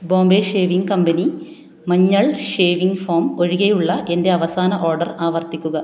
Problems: none marked